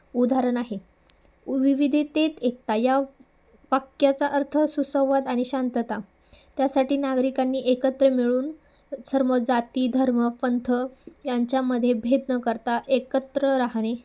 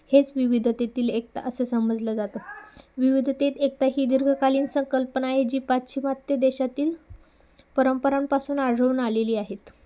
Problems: none marked